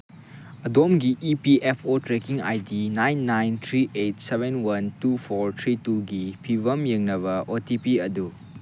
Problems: none marked